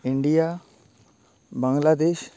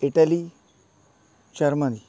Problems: constant background noise